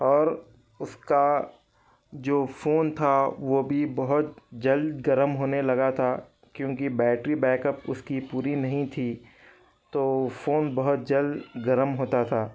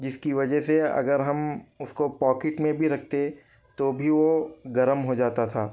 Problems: background conversations at intervals